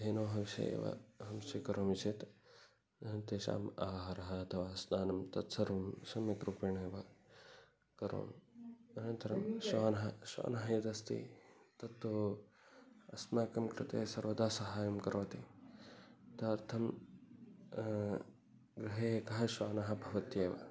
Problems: background sounds at intervals, background conversations at intervals, low volume